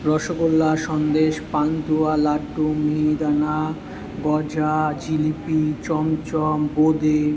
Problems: constant background noise, continuous background conversations